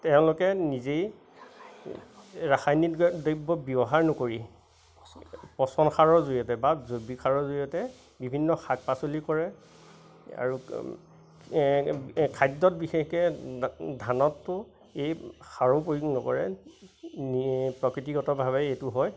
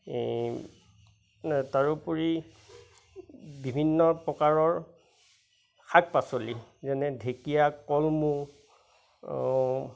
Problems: constant background noise, background conversations at intervals